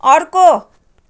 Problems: none marked